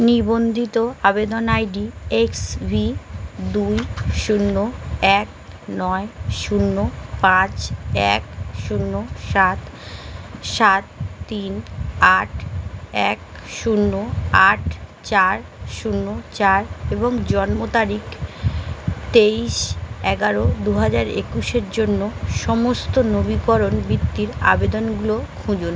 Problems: constant background noise